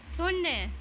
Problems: constant background noise